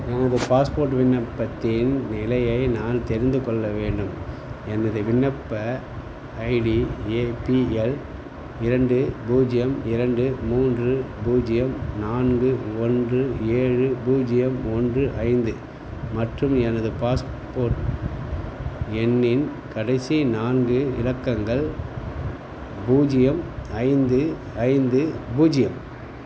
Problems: constant background noise